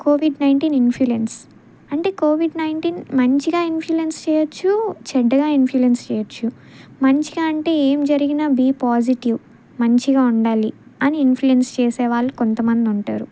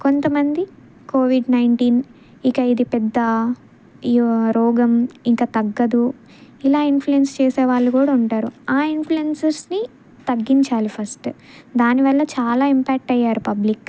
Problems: none marked